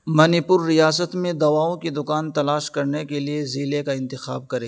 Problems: none marked